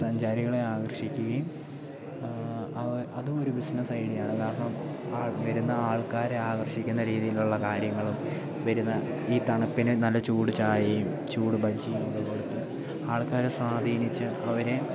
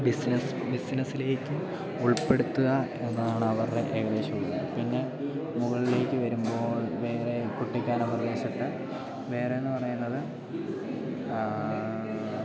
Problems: constant background noise, low volume